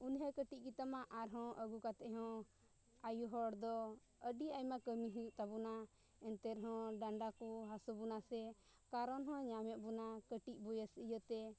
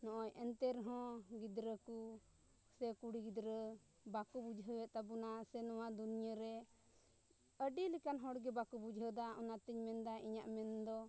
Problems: low volume